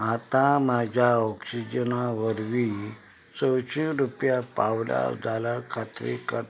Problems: background sounds at intervals